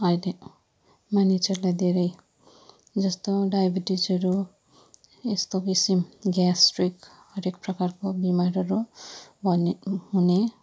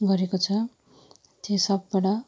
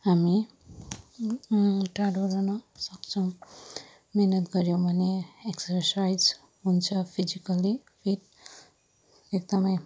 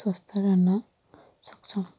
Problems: low volume